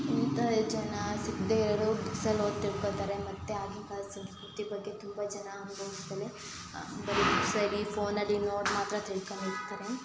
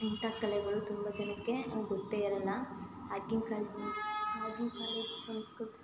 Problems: constant background noise